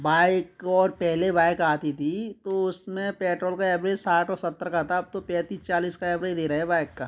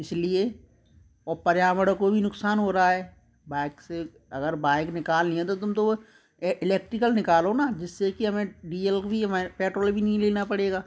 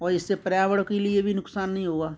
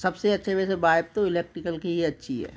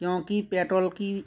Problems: constant background noise